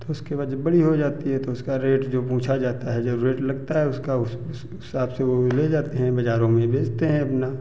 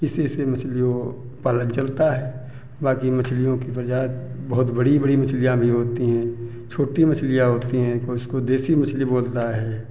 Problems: constant background noise, background conversations at intervals